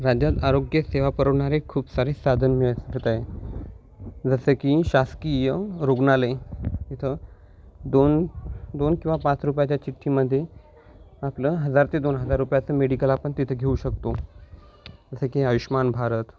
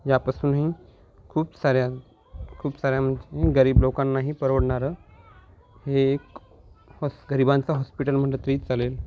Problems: none marked